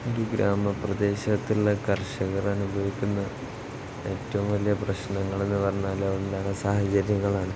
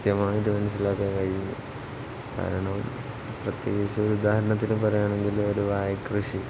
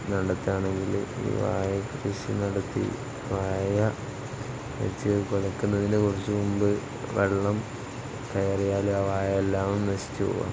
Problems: constant background noise